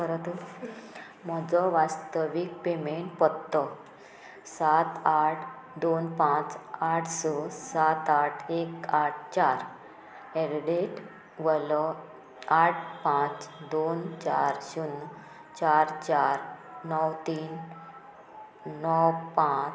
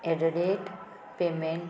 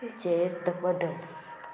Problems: constant background noise